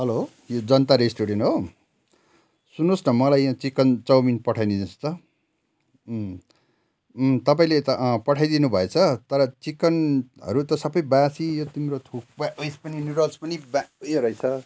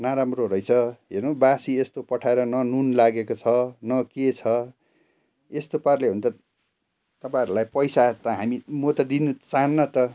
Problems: none marked